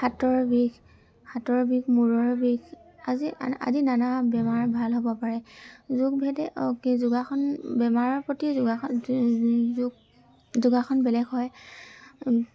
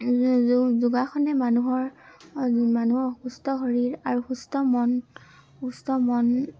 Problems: constant background noise, background conversations at intervals